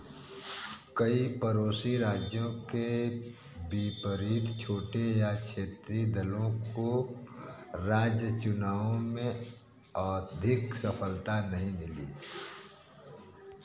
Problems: constant background noise